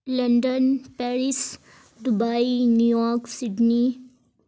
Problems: background sounds at intervals